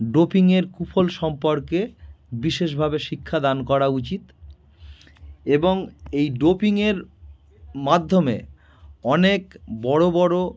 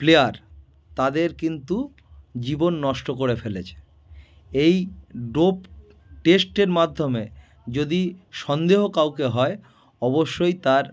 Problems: background sounds at intervals